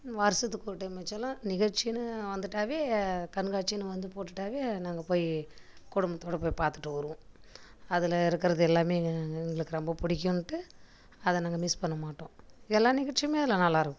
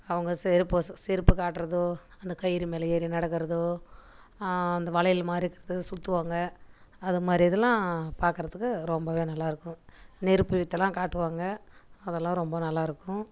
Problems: none marked